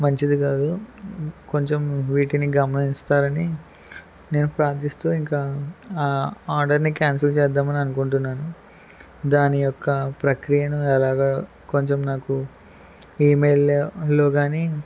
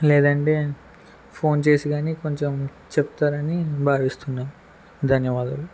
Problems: constant background noise